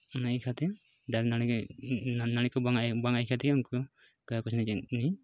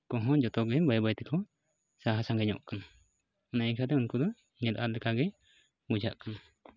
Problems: background sounds at intervals